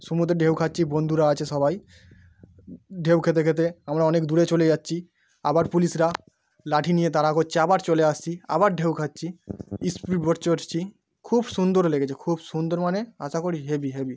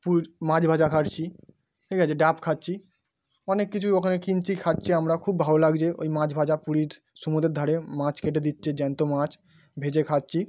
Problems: background sounds at intervals